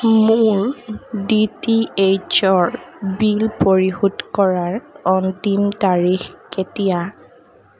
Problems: constant background noise